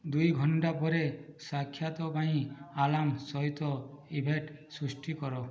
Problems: low volume